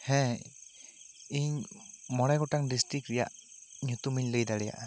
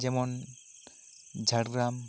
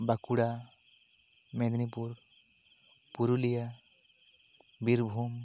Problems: none marked